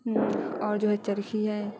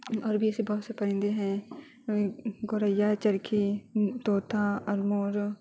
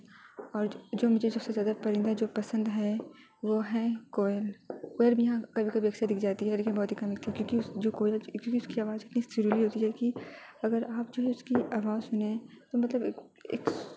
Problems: constant background noise